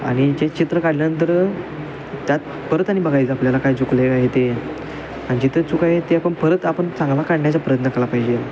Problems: constant background noise, background conversations at intervals